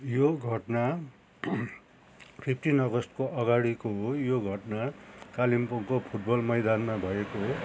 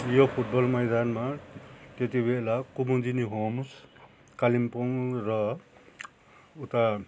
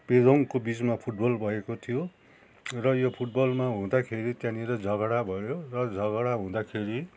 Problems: none marked